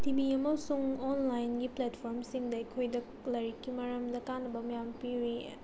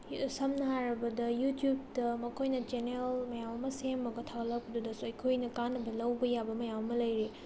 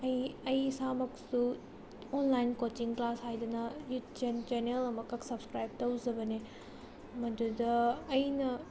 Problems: background sounds at intervals, low volume